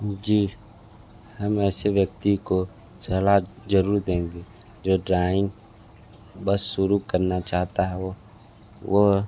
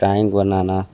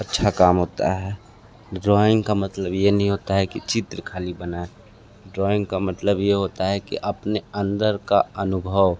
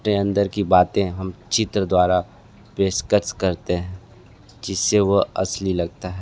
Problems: background sounds at intervals